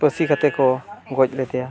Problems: constant background noise, continuous background conversations